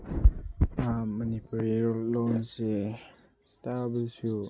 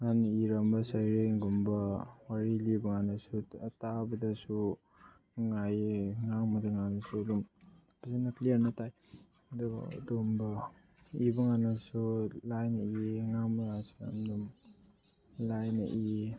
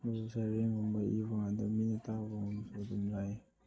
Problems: low volume